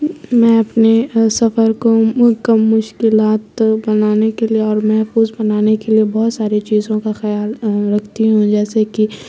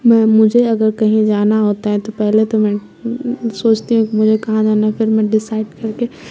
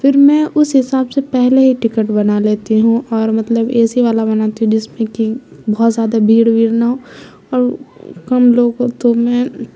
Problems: background sounds at intervals, background conversations at intervals, low volume